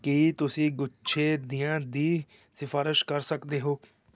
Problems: background sounds at intervals